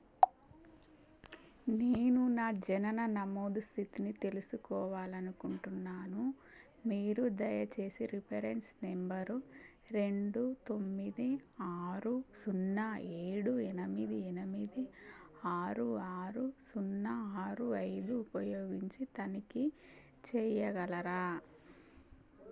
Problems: constant background noise